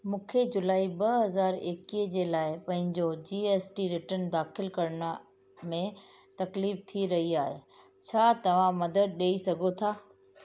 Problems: constant background noise